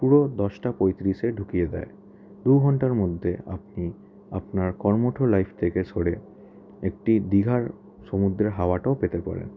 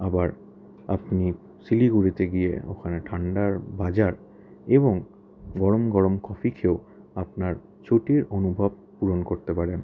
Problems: background conversations at intervals